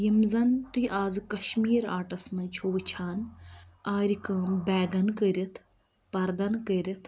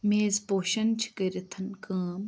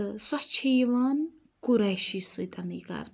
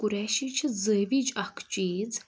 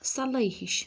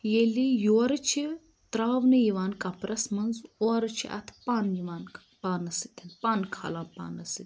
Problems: constant background noise